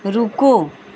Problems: constant background noise